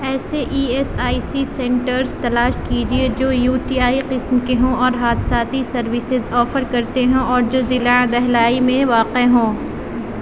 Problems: none marked